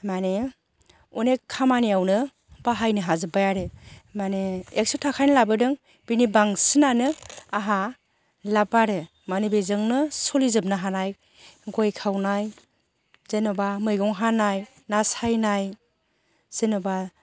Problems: none marked